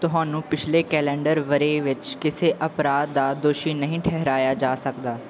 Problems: background sounds at intervals